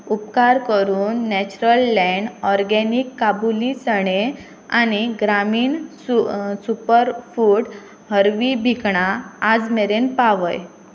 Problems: constant background noise